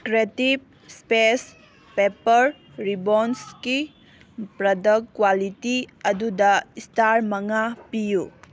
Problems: background sounds at intervals